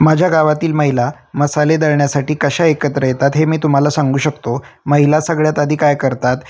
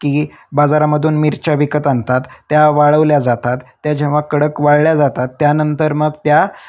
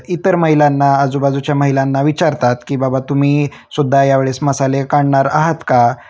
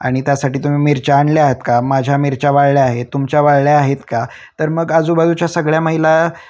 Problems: none marked